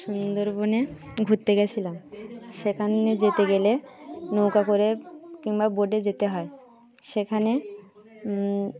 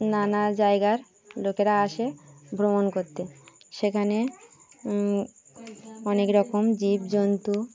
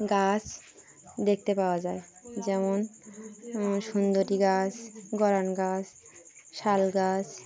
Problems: continuous background conversations